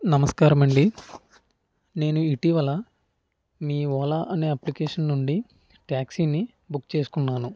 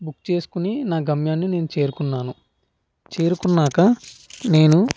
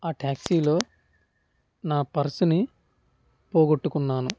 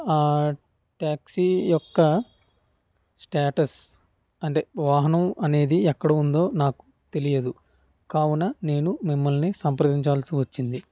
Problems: none marked